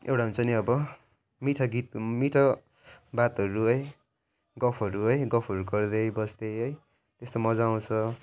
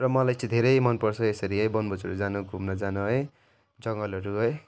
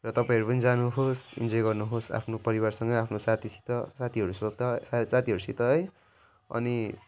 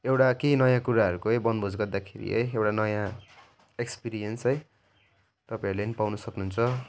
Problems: none marked